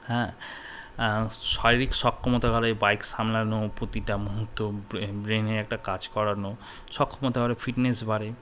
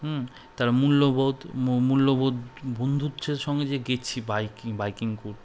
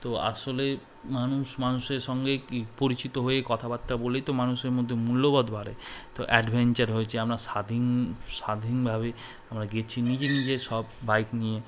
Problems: none marked